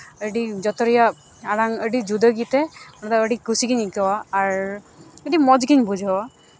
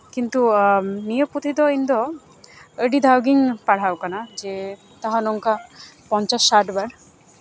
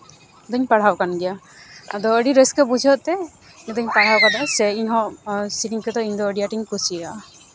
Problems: constant background noise, continuous background conversations